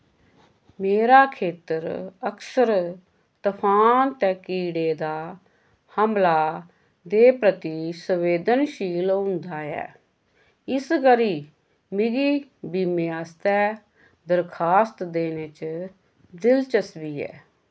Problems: none marked